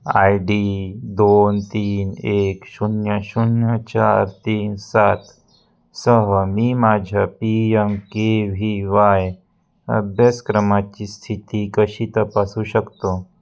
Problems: none marked